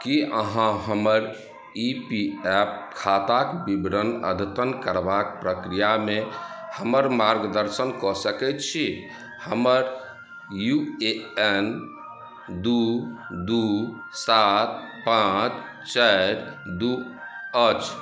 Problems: background sounds at intervals